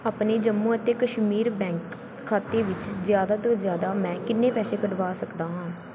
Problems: background sounds at intervals